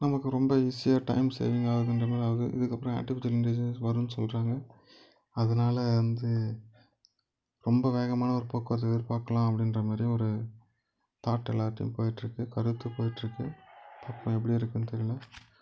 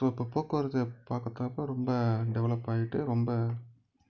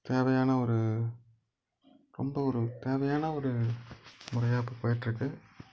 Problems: background sounds at intervals